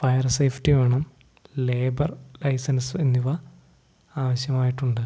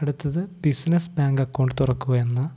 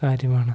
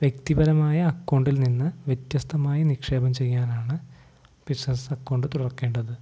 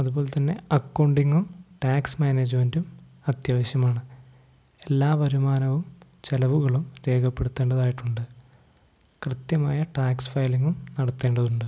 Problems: none marked